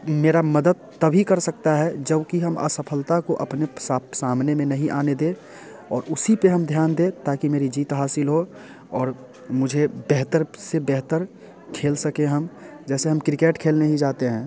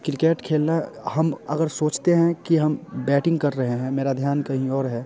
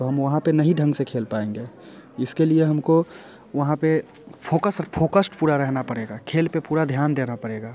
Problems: constant background noise, background conversations at intervals